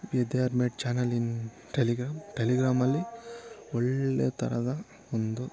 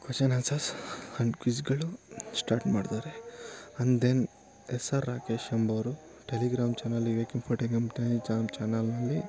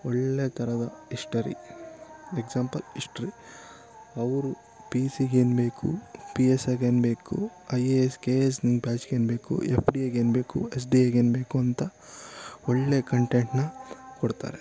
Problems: constant background noise